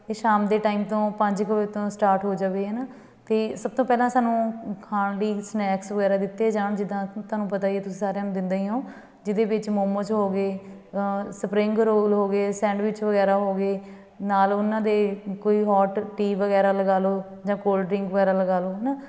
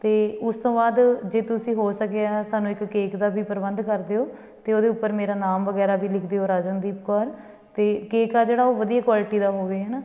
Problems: none marked